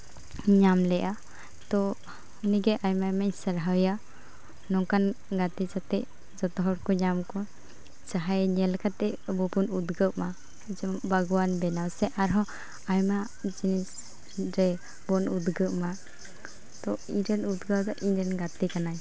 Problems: constant background noise